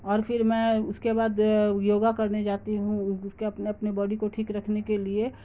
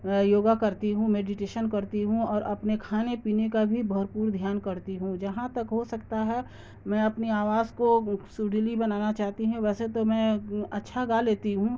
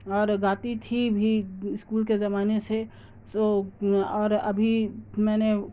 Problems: constant background noise